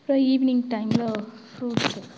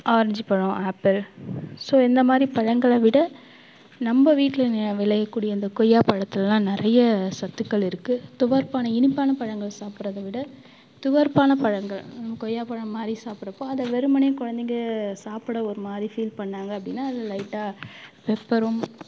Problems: background sounds at intervals